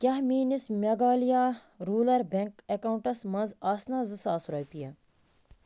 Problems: constant background noise